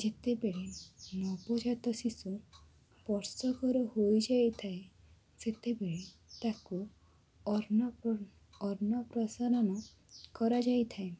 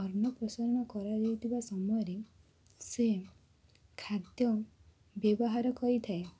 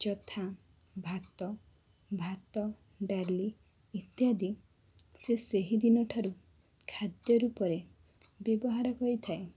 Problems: constant background noise